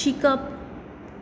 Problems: none marked